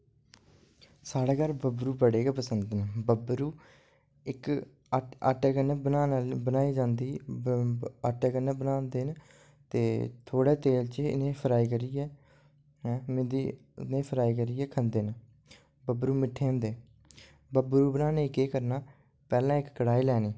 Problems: low volume